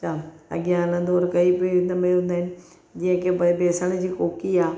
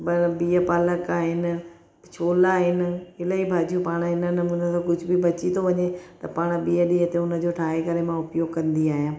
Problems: none marked